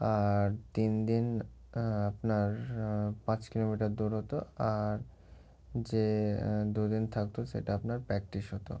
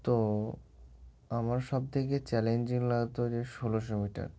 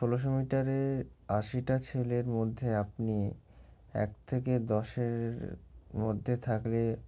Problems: background sounds at intervals